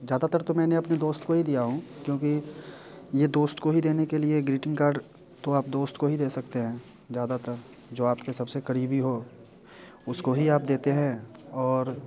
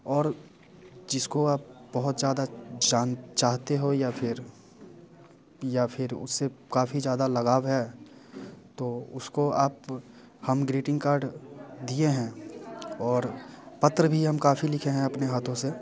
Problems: background sounds at intervals, background conversations at intervals